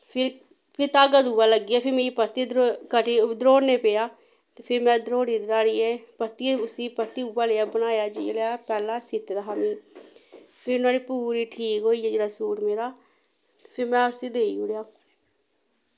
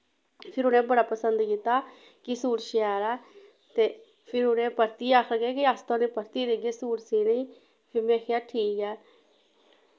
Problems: background sounds at intervals